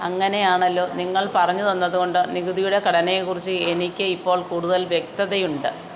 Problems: constant background noise